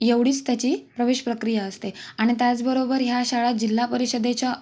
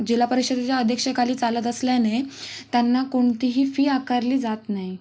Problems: none marked